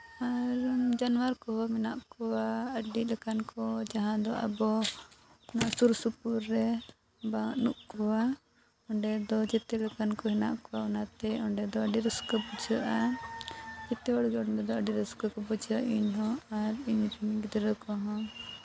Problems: none marked